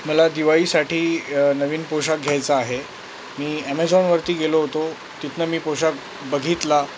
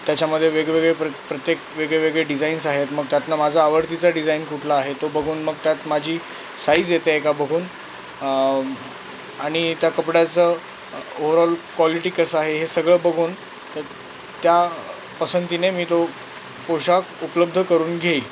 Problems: none marked